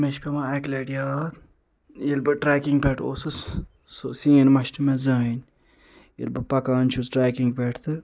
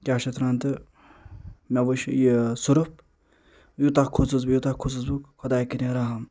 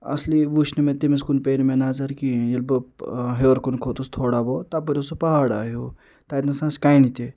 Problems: constant background noise